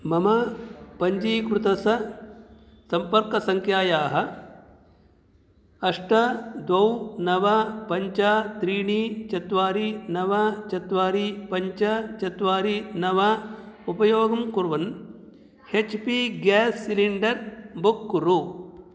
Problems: none marked